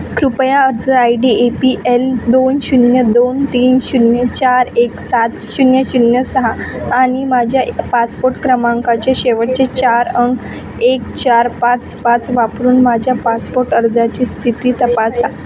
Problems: constant background noise, background conversations at intervals